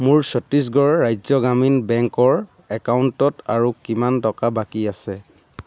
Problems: constant background noise